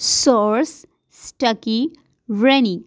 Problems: constant background noise